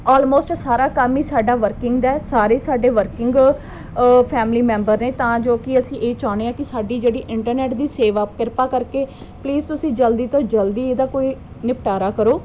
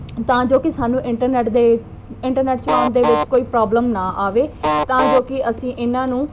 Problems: none marked